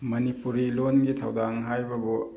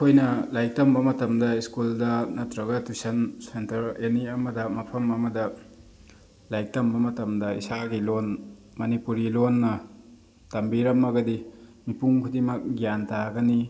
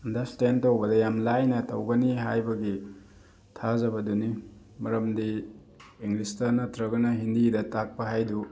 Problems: none marked